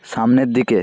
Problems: constant background noise